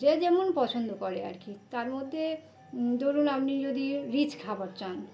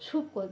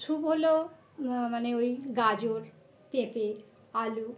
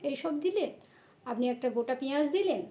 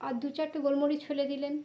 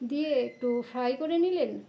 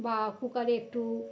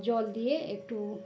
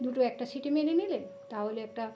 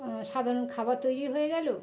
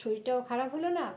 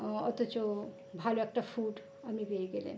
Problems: constant background noise, background conversations at intervals